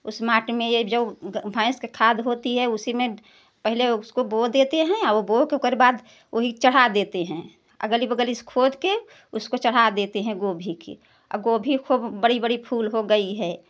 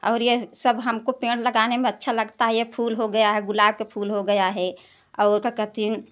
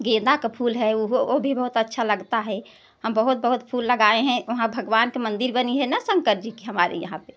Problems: none marked